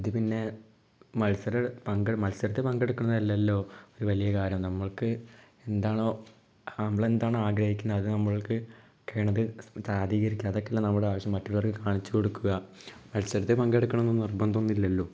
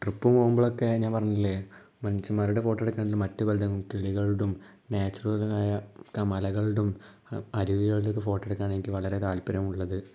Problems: low volume